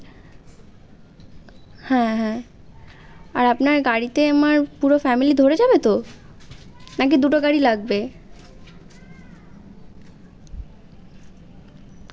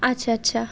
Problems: constant background noise